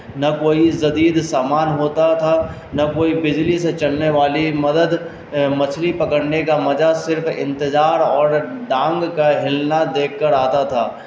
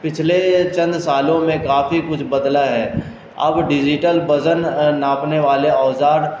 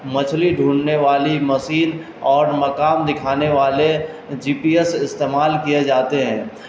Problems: constant background noise